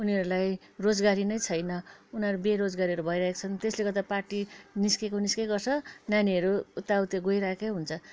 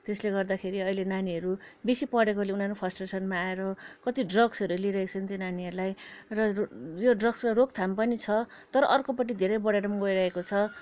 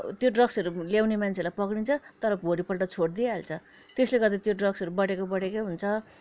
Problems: background sounds at intervals